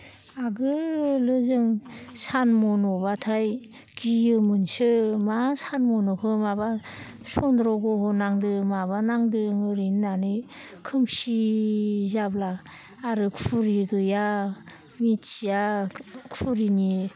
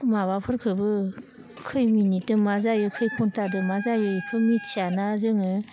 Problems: none marked